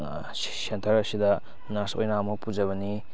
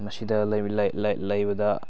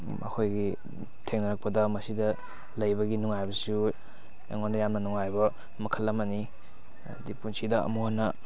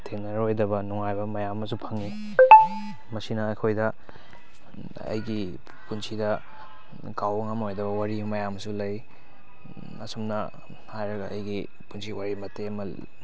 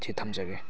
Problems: background sounds at intervals, background conversations at intervals